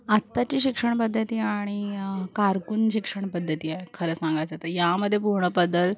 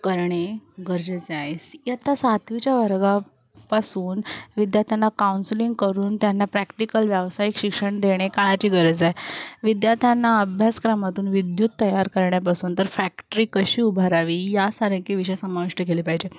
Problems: background sounds at intervals, continuous background conversations